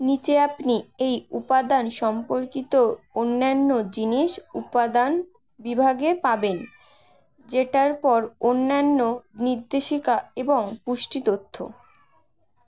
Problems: none marked